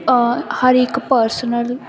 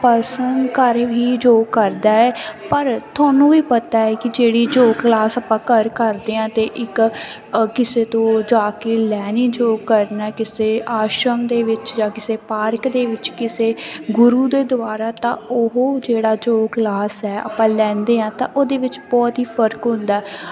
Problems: constant background noise